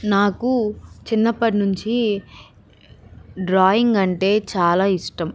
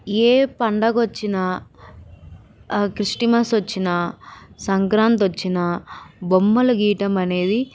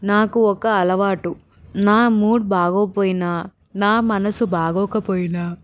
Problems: none marked